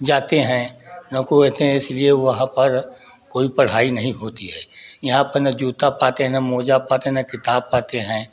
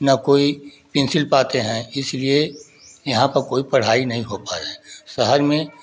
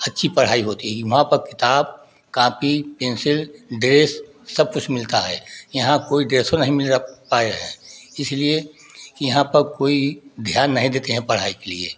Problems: background sounds at intervals, continuous background conversations